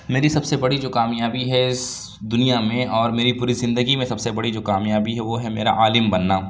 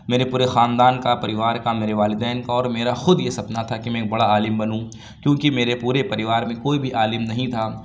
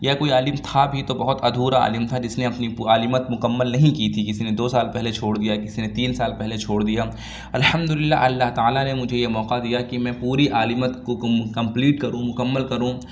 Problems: none marked